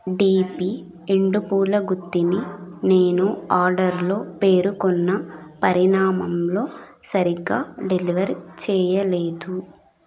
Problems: background conversations at intervals